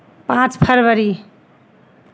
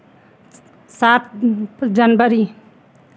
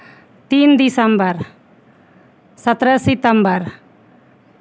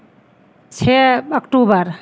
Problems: constant background noise